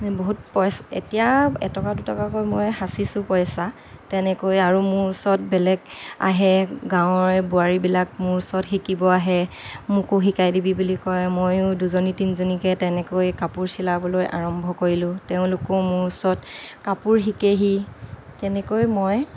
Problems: none marked